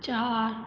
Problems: constant background noise, low volume